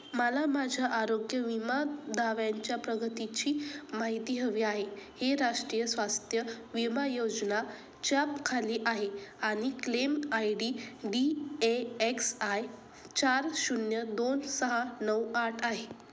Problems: constant background noise